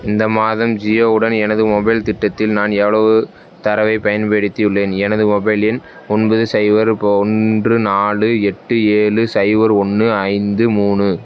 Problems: background sounds at intervals